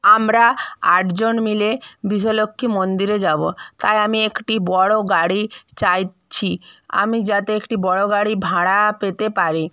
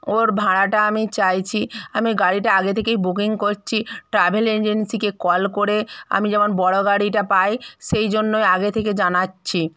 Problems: none marked